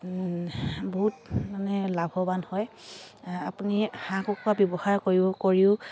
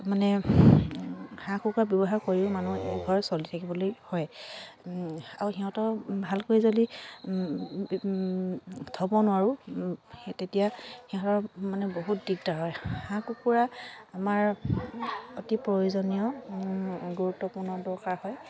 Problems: constant background noise, continuous background conversations